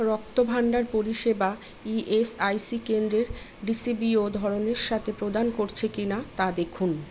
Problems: none marked